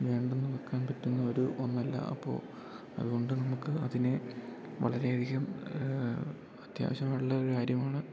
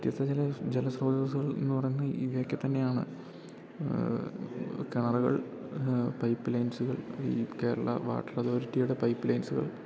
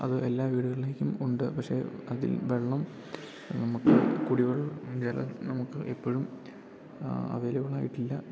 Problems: background conversations at intervals